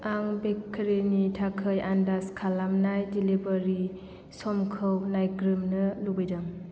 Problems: none marked